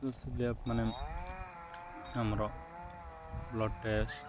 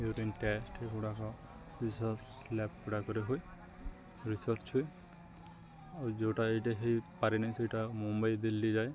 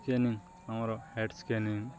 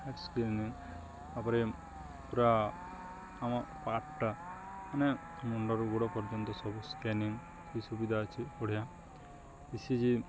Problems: constant background noise, continuous background conversations